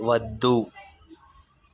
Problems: none marked